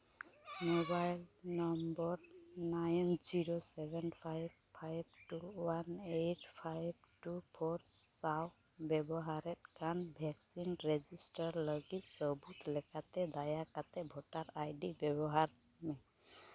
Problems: none marked